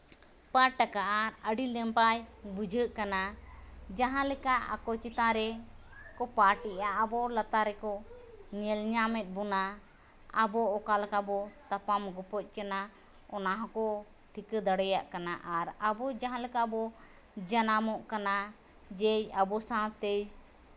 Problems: none marked